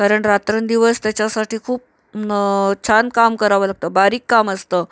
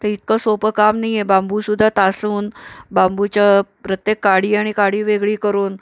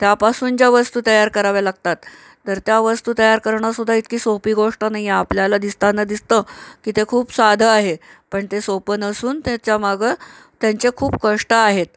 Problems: none marked